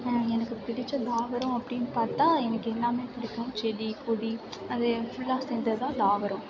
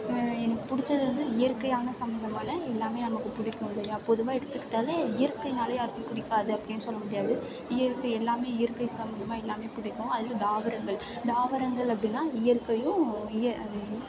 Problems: background sounds at intervals